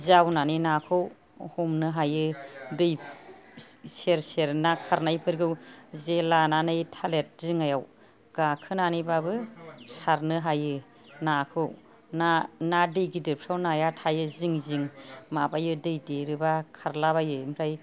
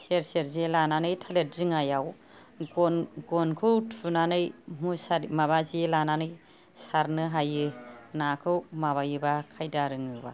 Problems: none marked